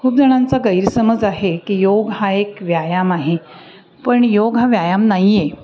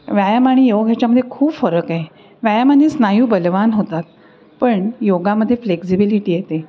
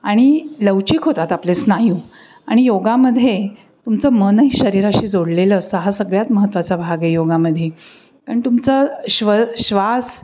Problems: none marked